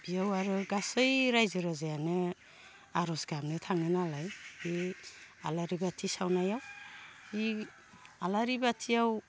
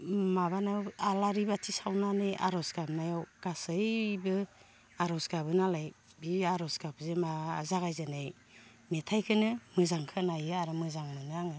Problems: constant background noise